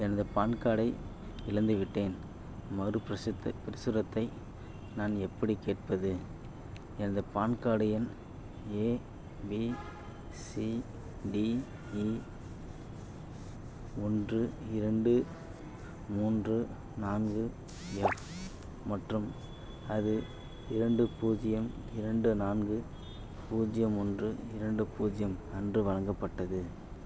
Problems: none marked